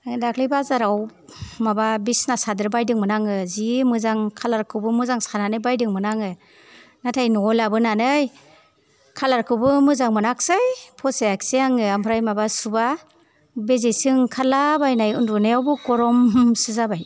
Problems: none marked